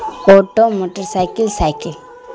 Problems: constant background noise